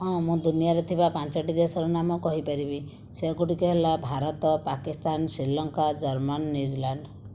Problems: none marked